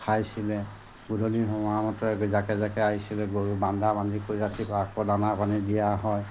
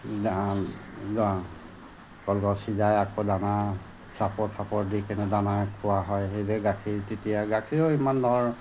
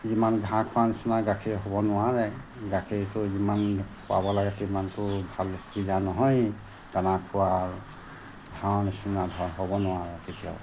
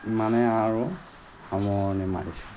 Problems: constant background noise